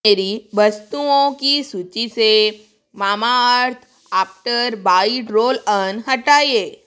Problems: constant background noise